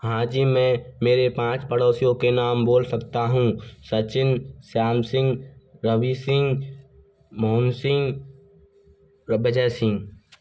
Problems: constant background noise